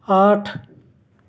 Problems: constant background noise